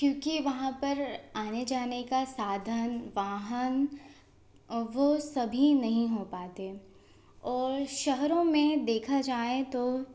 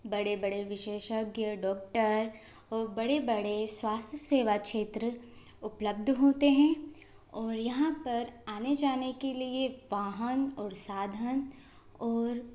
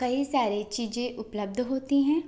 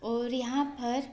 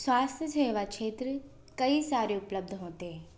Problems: constant background noise